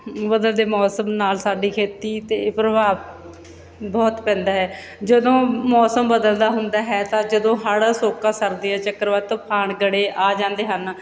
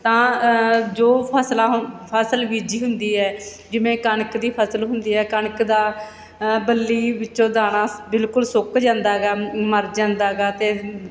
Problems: none marked